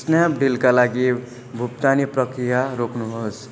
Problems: none marked